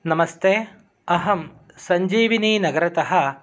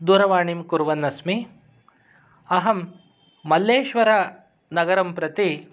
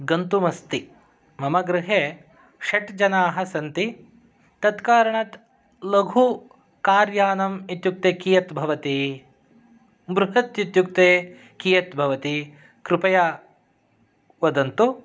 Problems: none marked